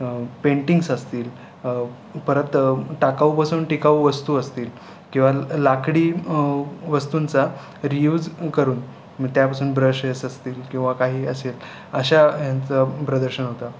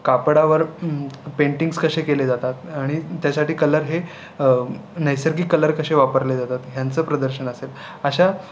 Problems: constant background noise, background conversations at intervals